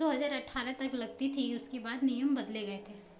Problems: none marked